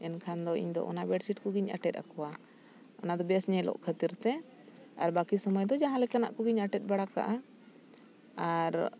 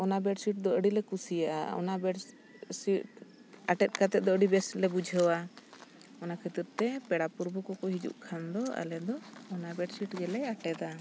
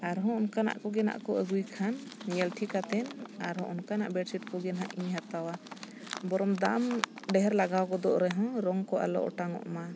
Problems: background sounds at intervals